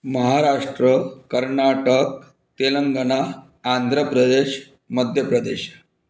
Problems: none marked